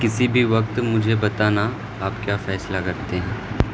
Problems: constant background noise